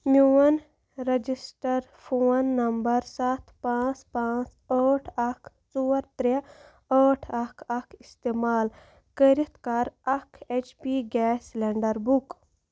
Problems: constant background noise